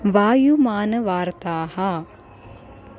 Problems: constant background noise